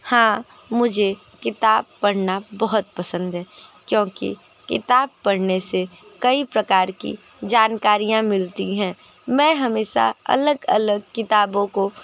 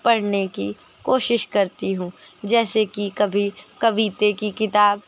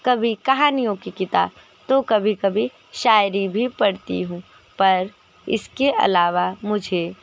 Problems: background sounds at intervals